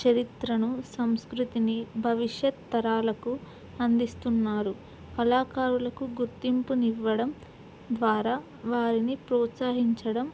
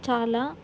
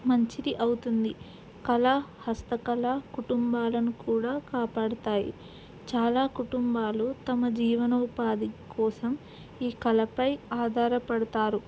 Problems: background sounds at intervals